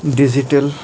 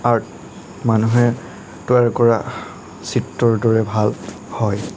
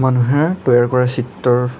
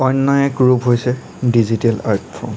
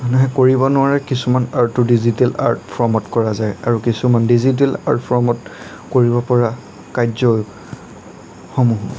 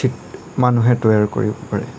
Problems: constant background noise